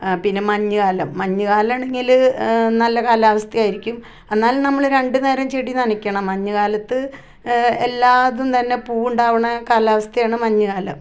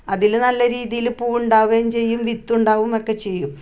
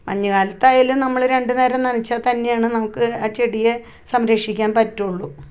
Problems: none marked